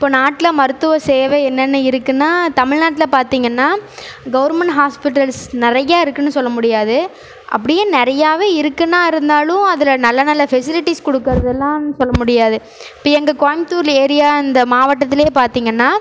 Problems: none marked